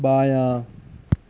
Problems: none marked